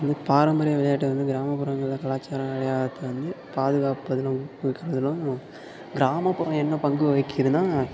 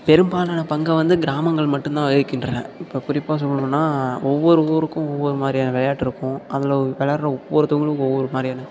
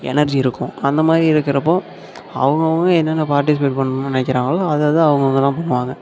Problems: constant background noise, low volume